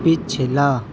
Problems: none marked